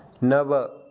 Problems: none marked